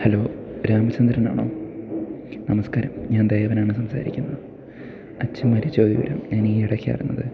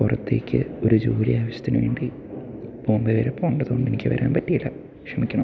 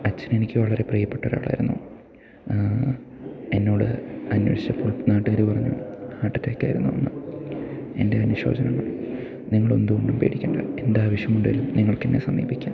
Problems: background sounds at intervals, low volume